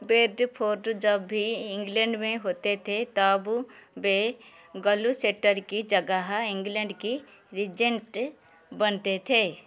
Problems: background sounds at intervals